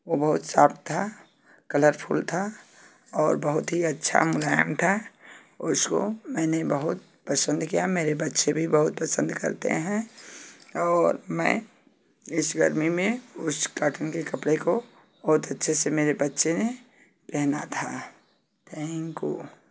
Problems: constant background noise